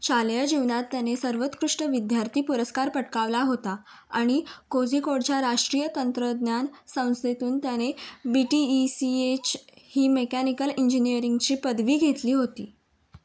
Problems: background sounds at intervals